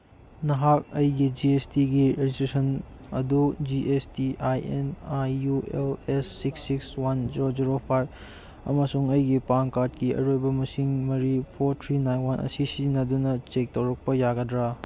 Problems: none marked